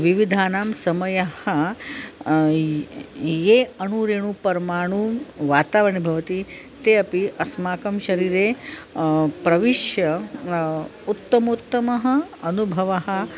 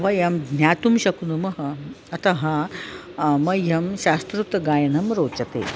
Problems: constant background noise, background conversations at intervals